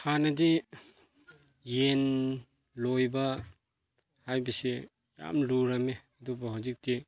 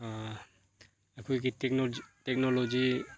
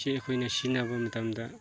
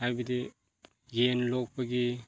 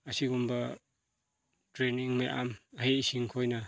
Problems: background conversations at intervals